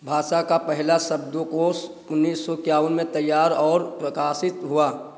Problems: none marked